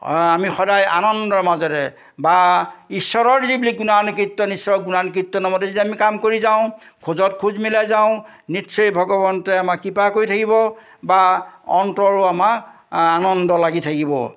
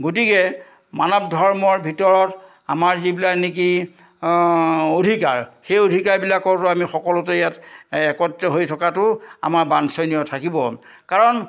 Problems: none marked